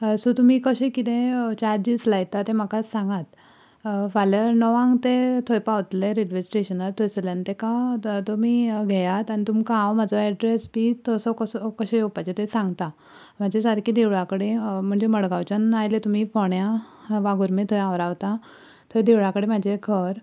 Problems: background conversations at intervals